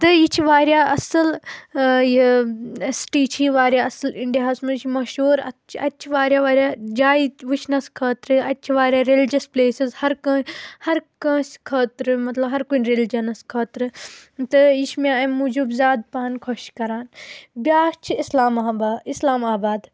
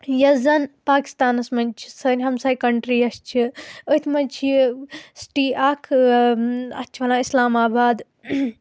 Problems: constant background noise